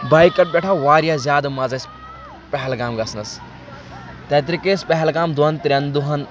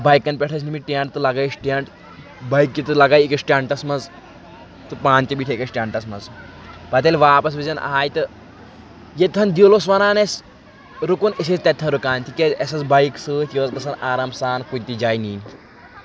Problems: constant background noise